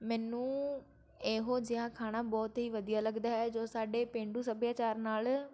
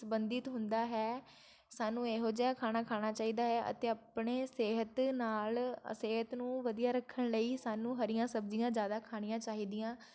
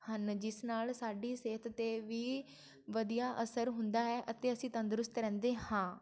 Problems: none marked